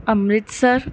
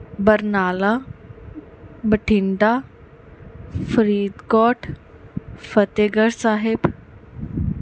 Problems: background sounds at intervals